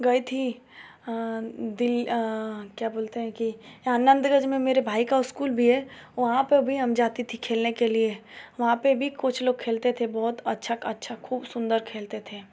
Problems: constant background noise